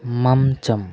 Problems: none marked